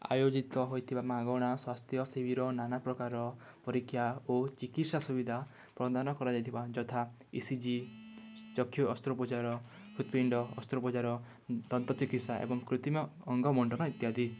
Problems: background sounds at intervals